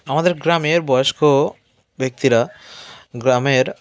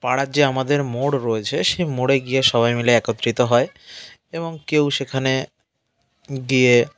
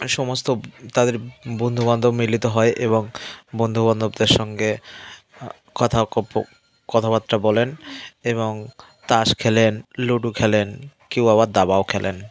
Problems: background conversations at intervals